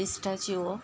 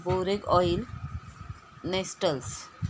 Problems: constant background noise